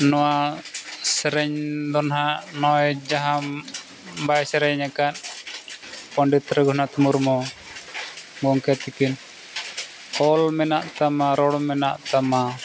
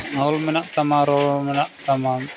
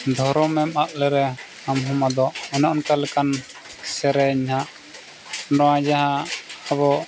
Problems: constant background noise